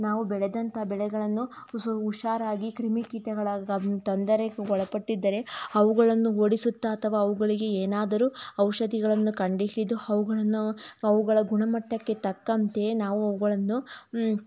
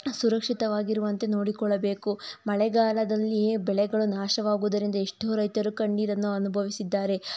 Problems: none marked